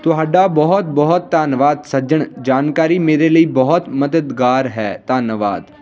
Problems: continuous background conversations